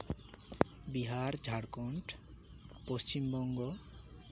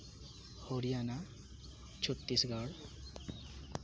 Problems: constant background noise